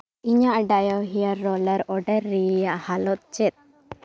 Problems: background conversations at intervals